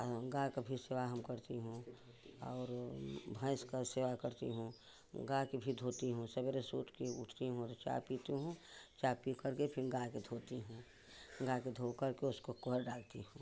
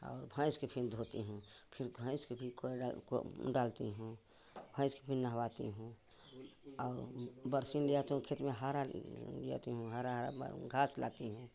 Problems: constant background noise, continuous background conversations